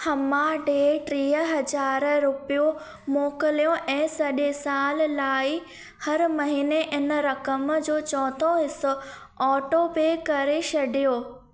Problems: background sounds at intervals, echo